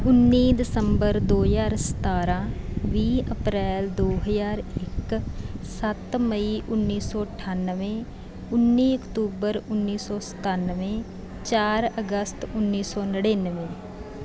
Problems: constant background noise